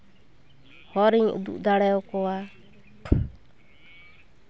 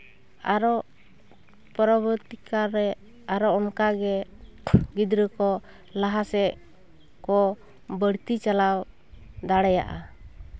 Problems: background sounds at intervals, background conversations at intervals